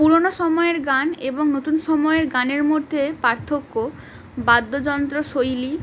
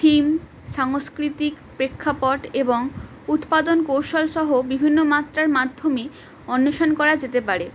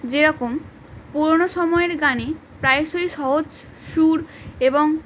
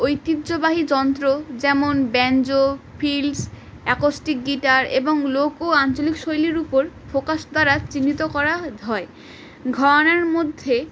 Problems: constant background noise